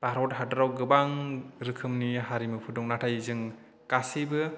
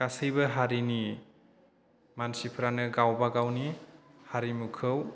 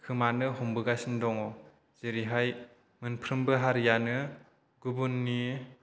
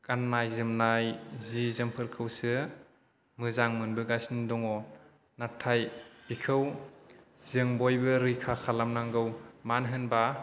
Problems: none marked